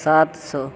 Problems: constant background noise